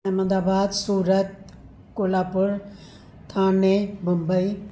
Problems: none marked